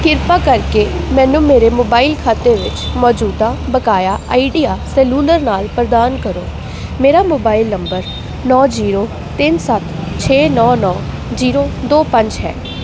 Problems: constant background noise